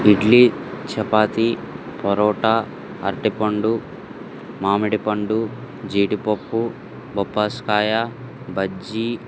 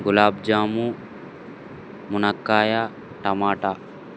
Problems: constant background noise